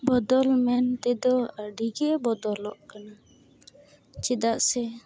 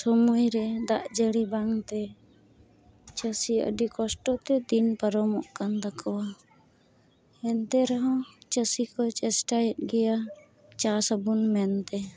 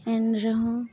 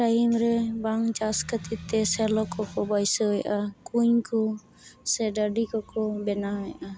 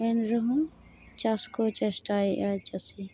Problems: constant background noise